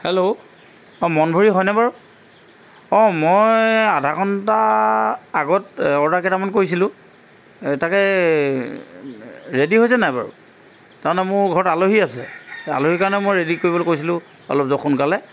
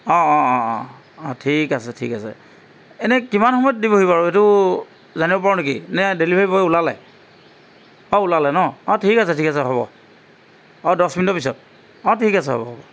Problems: background sounds at intervals